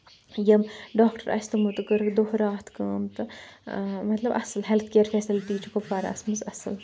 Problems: background sounds at intervals